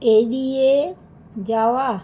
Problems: constant background noise